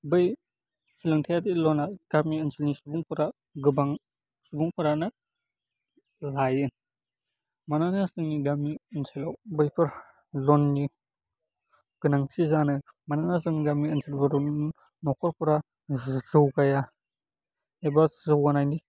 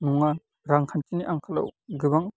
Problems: low volume